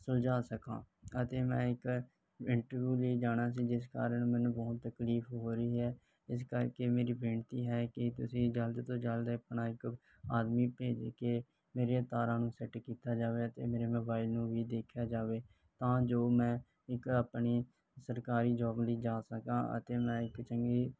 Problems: none marked